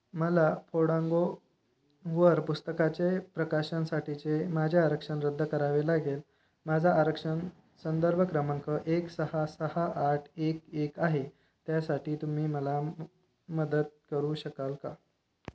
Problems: none marked